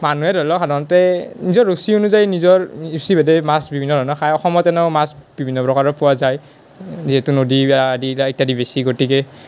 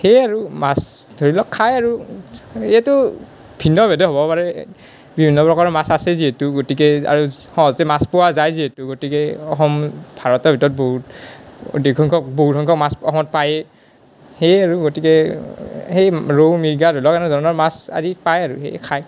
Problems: none marked